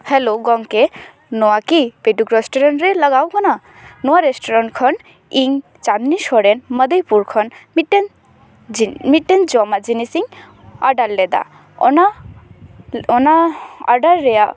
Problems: background sounds at intervals, background conversations at intervals